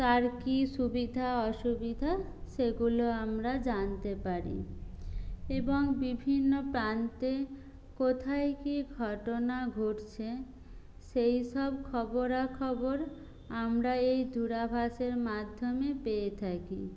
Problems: none marked